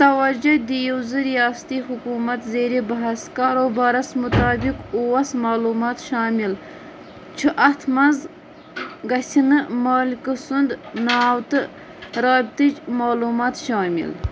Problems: constant background noise